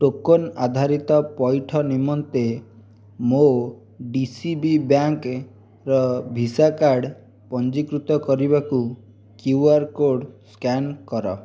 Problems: none marked